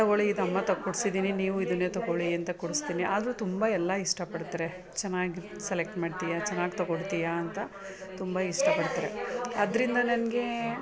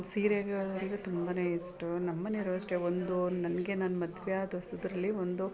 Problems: background conversations at intervals